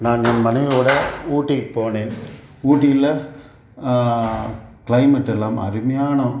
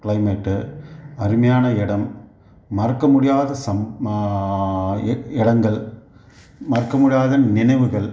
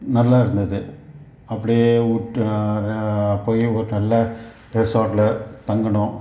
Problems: none marked